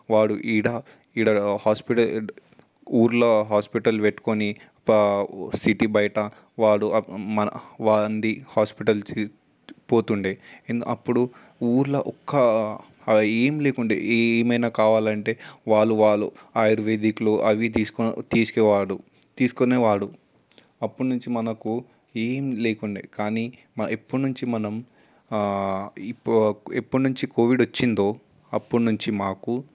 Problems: constant background noise